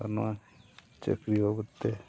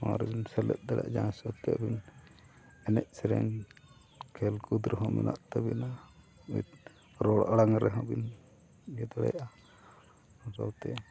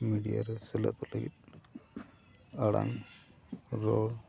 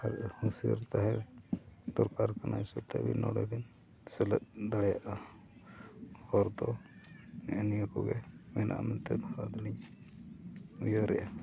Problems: constant background noise, background conversations at intervals